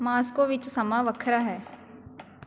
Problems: constant background noise